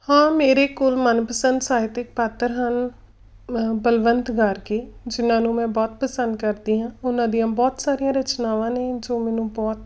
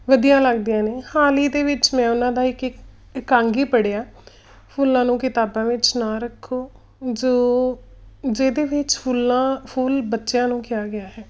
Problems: none marked